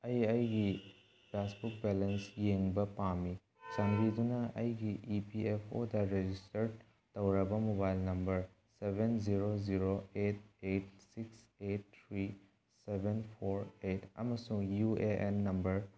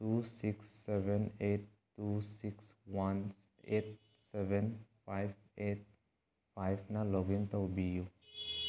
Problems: background sounds at intervals